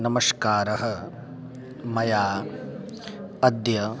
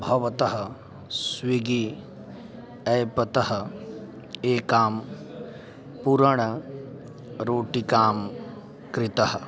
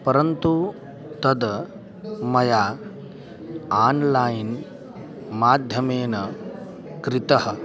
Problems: continuous background conversations